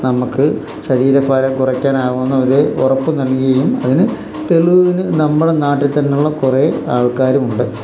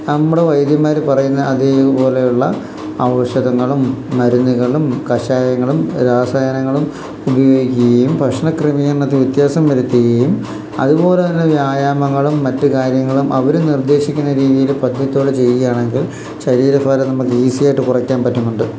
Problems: constant background noise